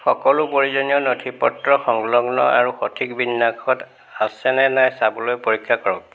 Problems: constant background noise